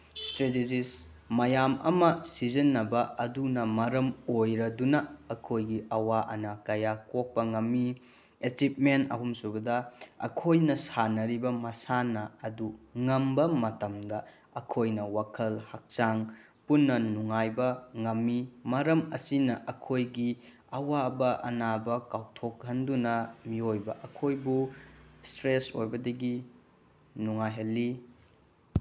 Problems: background sounds at intervals